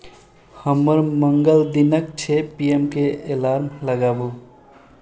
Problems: none marked